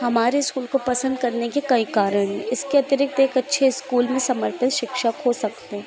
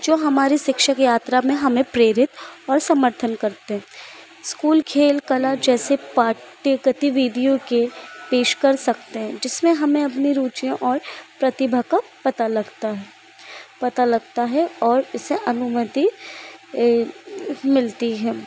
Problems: constant background noise